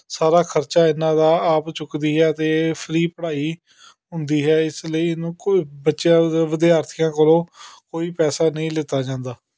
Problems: background sounds at intervals